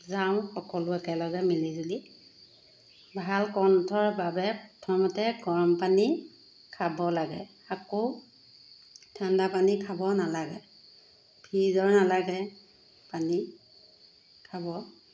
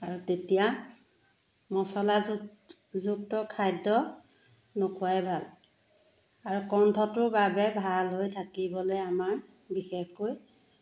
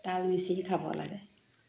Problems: constant background noise